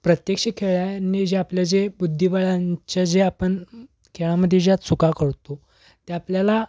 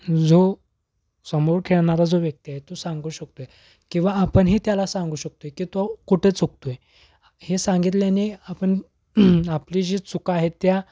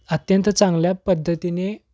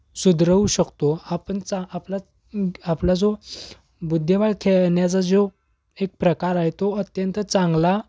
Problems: background sounds at intervals